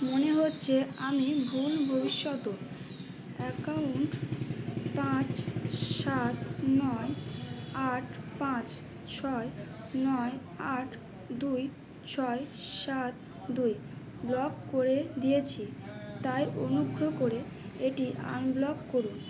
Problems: constant background noise, background conversations at intervals